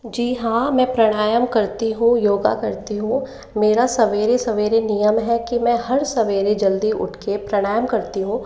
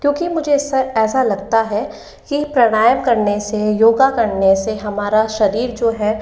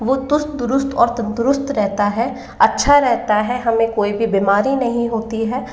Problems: echo